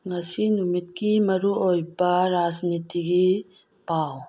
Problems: background sounds at intervals